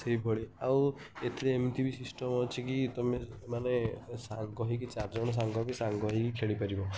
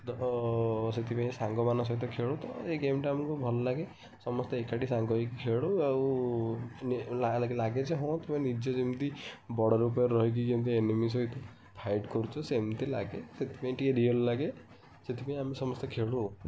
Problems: background sounds at intervals, background conversations at intervals